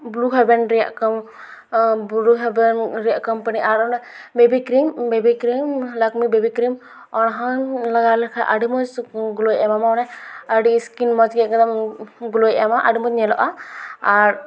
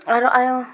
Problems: none marked